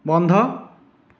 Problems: echo